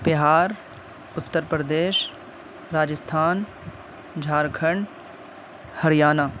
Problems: constant background noise